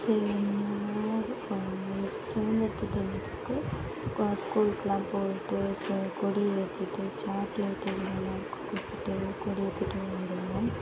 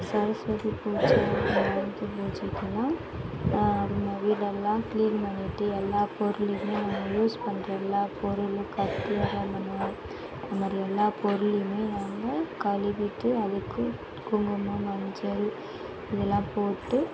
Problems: constant background noise